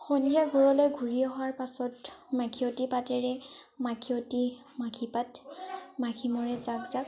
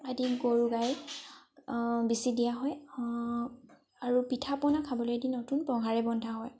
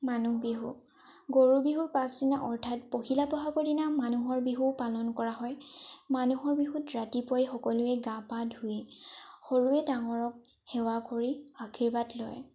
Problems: background sounds at intervals